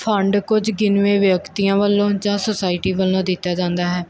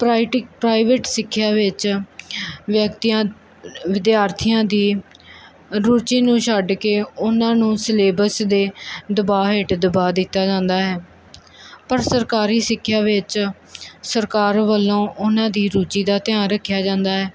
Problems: none marked